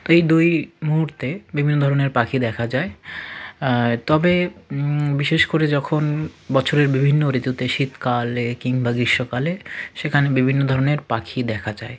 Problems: constant background noise, continuous background conversations